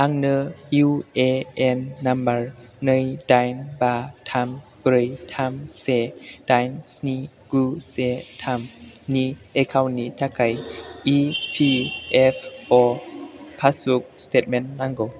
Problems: constant background noise